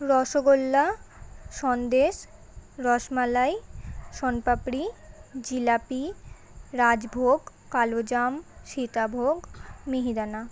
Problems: constant background noise, continuous background conversations